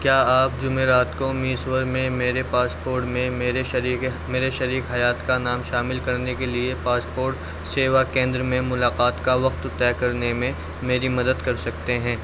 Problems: constant background noise